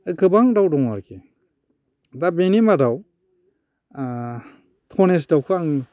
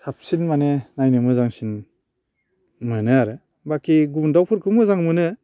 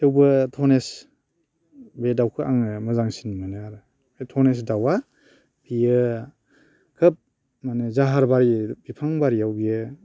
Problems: constant background noise